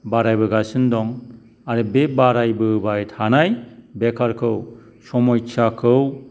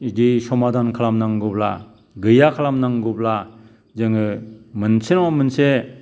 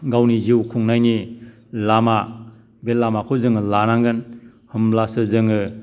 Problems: background sounds at intervals